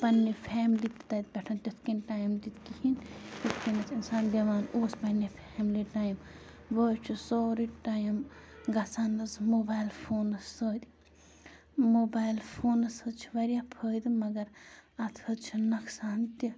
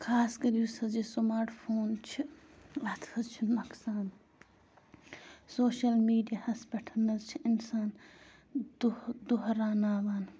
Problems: constant background noise